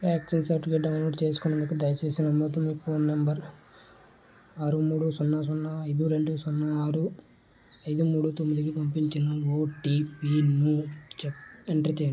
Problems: constant background noise, low volume